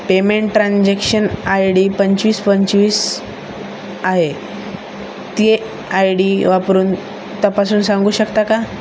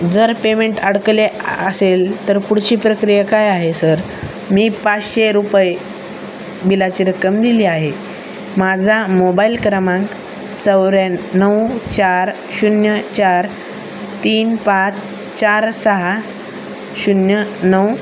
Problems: constant background noise